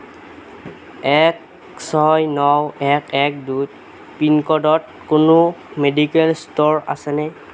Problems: none marked